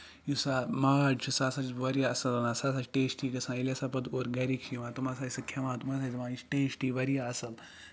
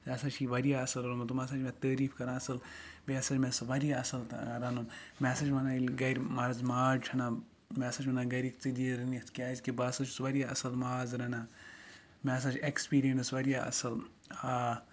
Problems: background sounds at intervals, background conversations at intervals